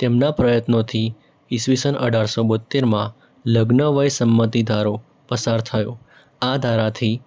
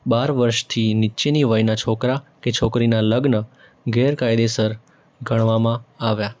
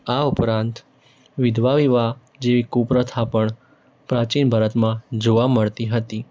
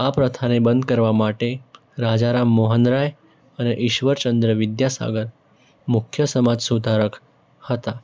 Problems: background sounds at intervals